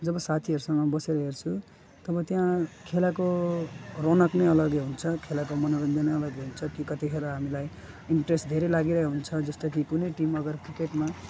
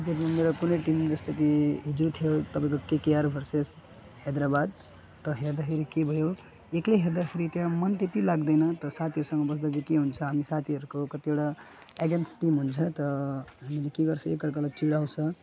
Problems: background sounds at intervals